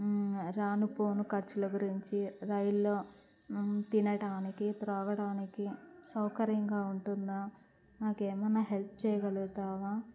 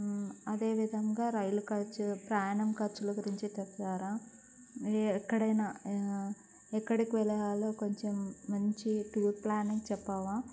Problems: constant background noise, low volume